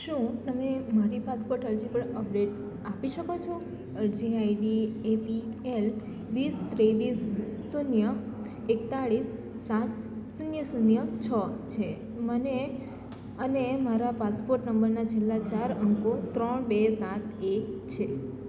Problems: background sounds at intervals